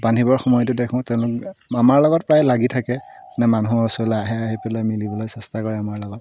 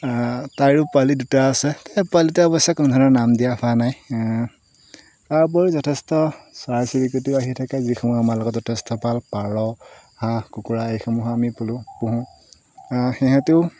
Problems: constant background noise